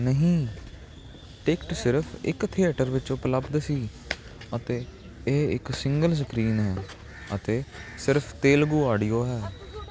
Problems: none marked